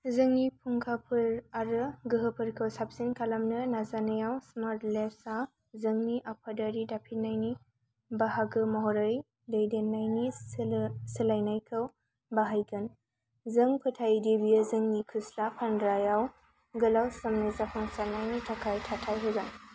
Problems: none marked